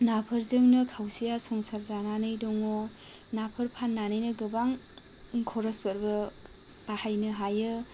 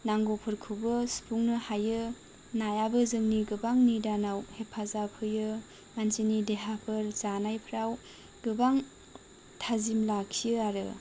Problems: low volume